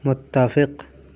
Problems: constant background noise